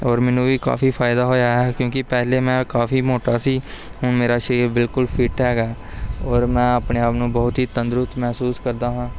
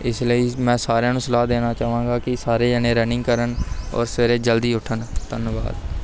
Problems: none marked